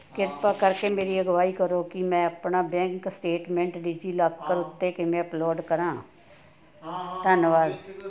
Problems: continuous background conversations